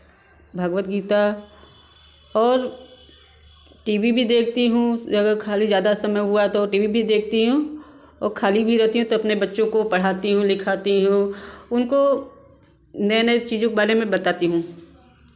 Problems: none marked